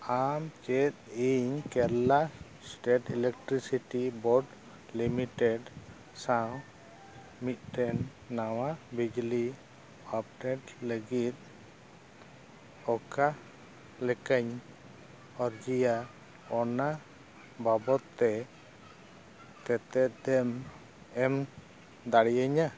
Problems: background sounds at intervals